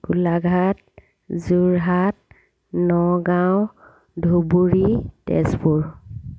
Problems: none marked